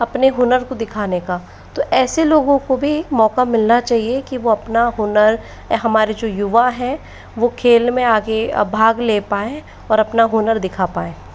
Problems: constant background noise